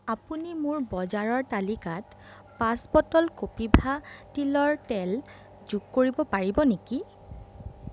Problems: background conversations at intervals